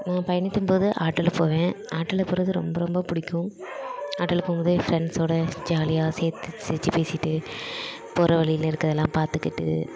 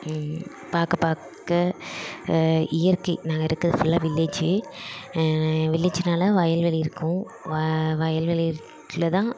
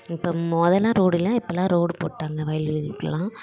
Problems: constant background noise